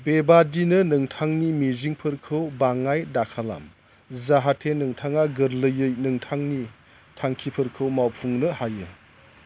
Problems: none marked